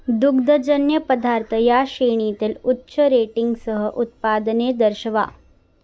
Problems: constant background noise, background conversations at intervals